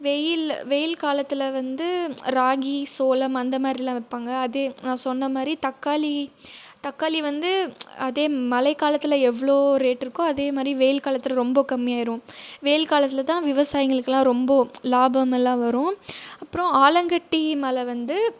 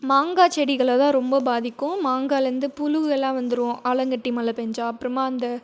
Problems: none marked